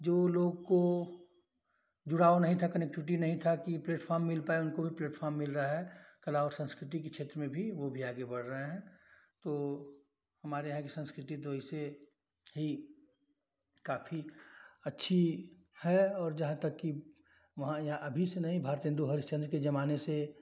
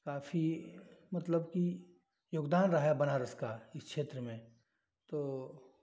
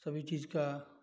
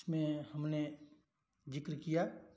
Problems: none marked